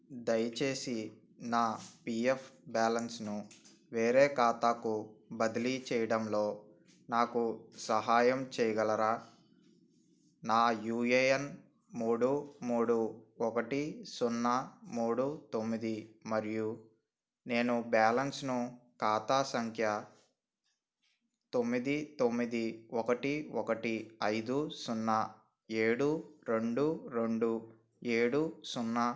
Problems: none marked